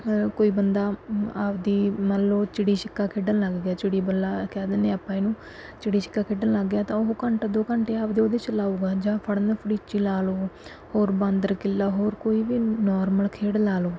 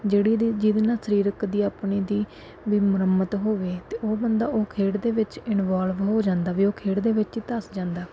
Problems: background sounds at intervals